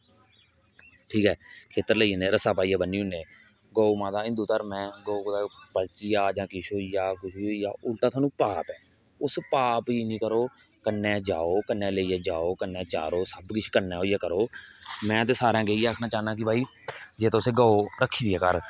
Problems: background sounds at intervals